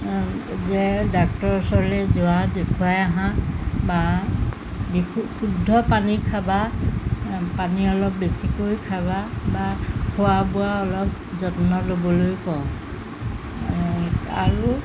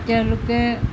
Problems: constant background noise